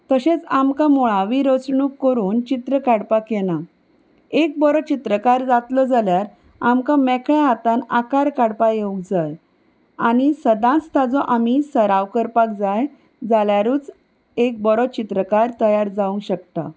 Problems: none marked